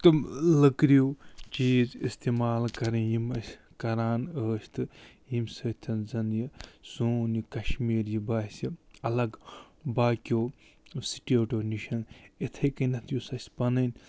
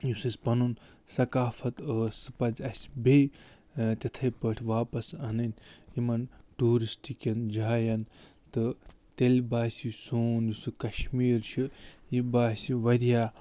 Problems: none marked